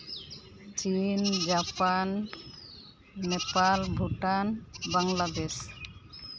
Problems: constant background noise